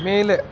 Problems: constant background noise